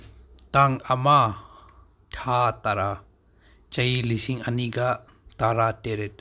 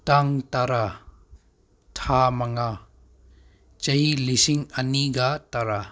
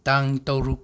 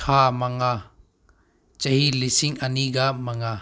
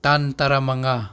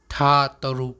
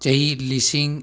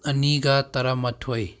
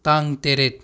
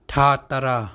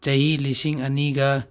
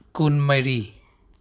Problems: none marked